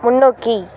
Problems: continuous background conversations